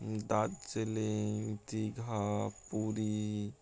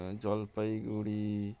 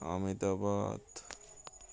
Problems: constant background noise